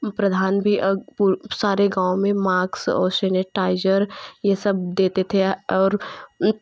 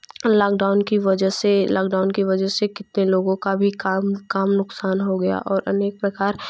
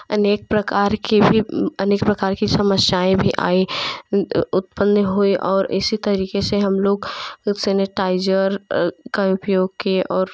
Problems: none marked